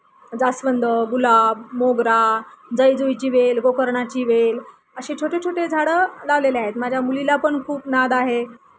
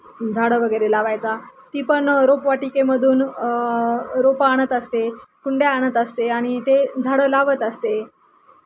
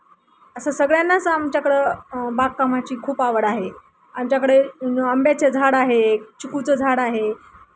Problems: none marked